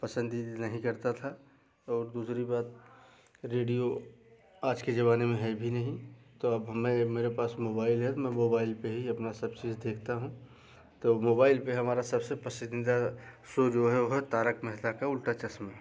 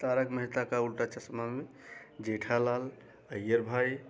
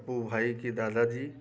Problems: background sounds at intervals